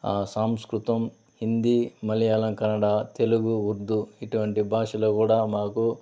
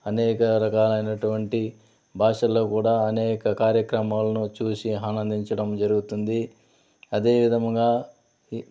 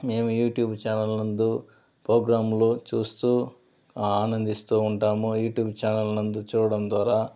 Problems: constant background noise